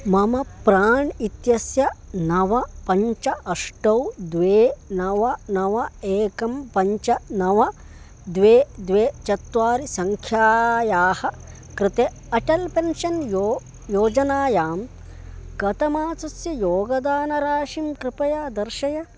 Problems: none marked